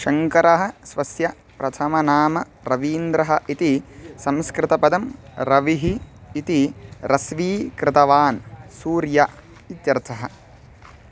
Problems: constant background noise